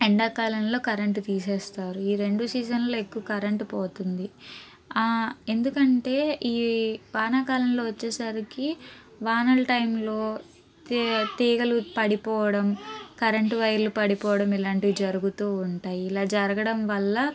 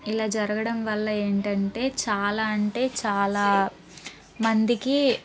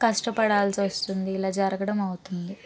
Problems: background conversations at intervals